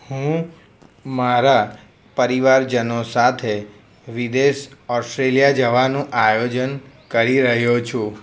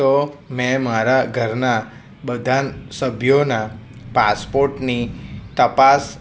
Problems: none marked